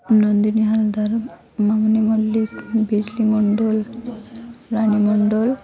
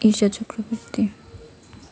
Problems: constant background noise, continuous background conversations